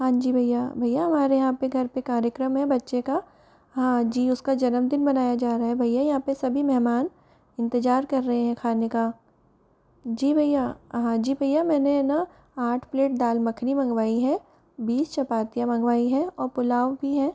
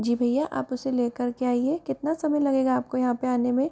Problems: background sounds at intervals